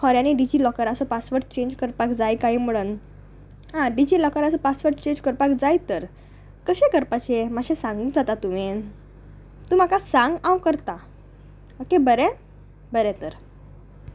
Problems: none marked